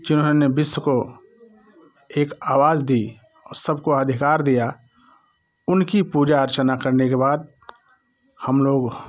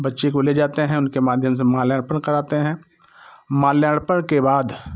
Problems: constant background noise